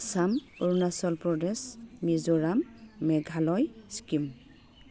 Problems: constant background noise